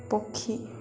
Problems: constant background noise